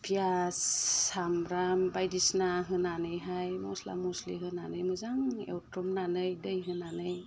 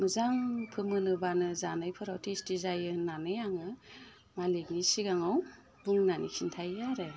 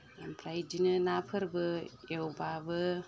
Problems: none marked